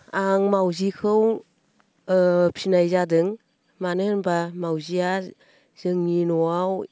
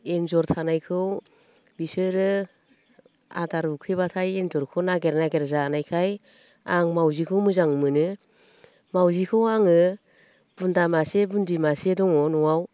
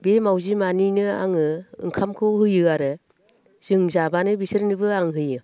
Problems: constant background noise